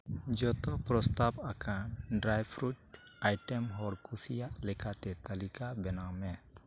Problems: none marked